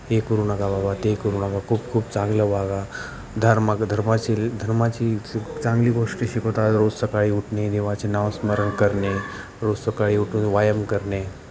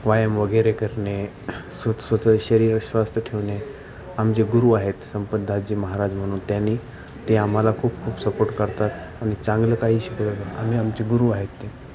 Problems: none marked